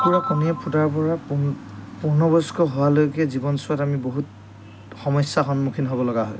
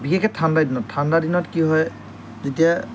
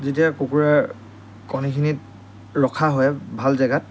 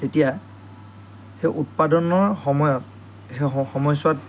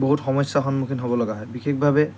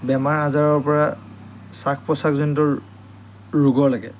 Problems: none marked